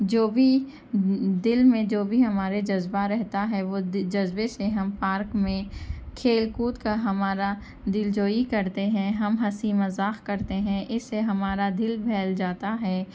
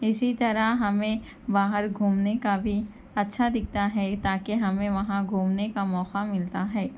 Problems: constant background noise, background conversations at intervals